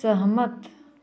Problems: continuous background conversations